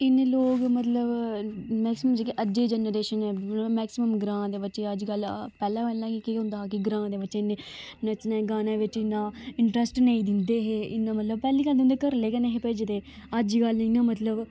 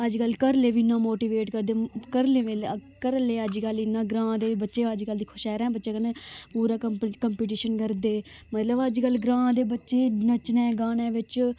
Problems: none marked